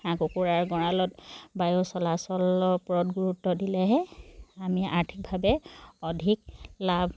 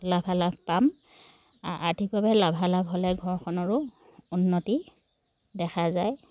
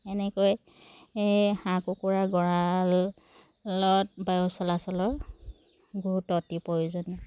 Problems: background sounds at intervals